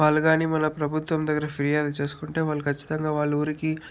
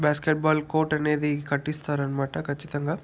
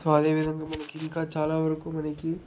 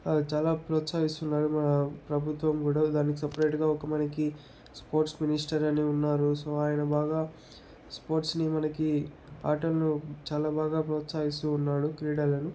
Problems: none marked